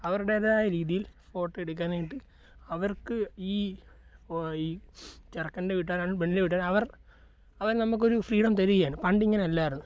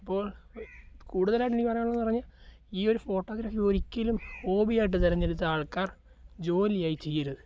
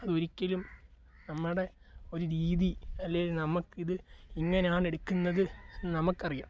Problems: low volume